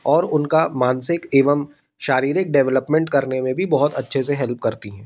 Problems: constant background noise